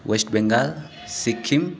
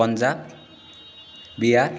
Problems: none marked